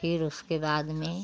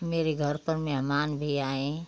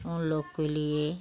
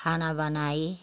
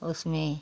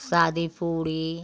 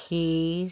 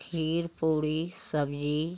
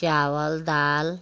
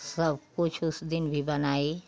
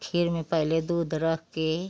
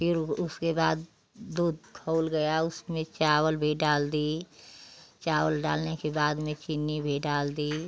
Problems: none marked